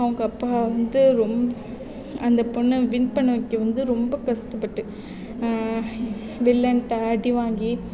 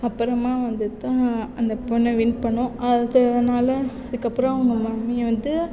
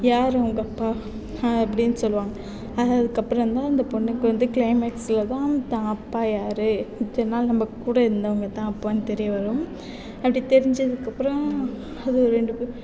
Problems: background sounds at intervals